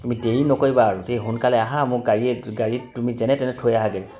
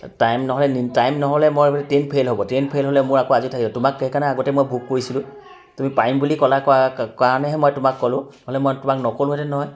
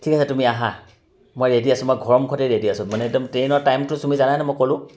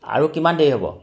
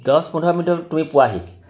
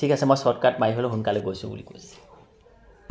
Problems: continuous background conversations